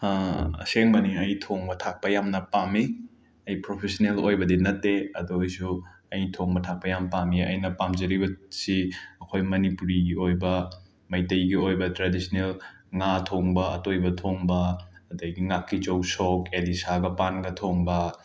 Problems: background sounds at intervals